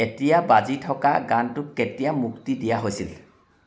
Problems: constant background noise